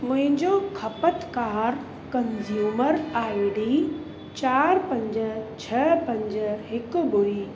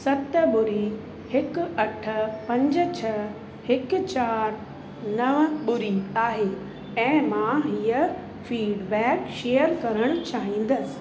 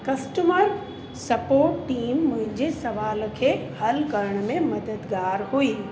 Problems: constant background noise, echo